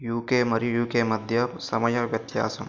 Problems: constant background noise